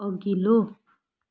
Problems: none marked